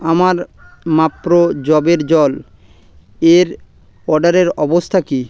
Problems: constant background noise